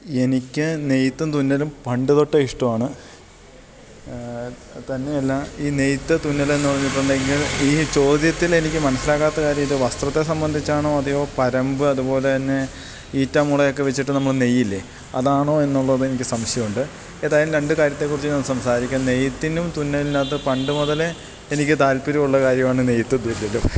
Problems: none marked